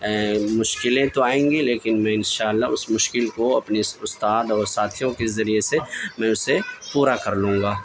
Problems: constant background noise, background conversations at intervals